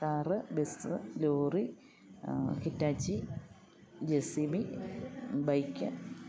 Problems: none marked